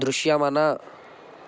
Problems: constant background noise